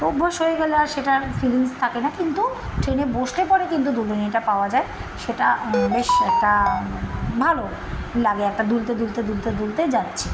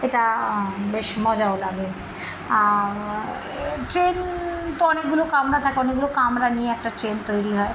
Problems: constant background noise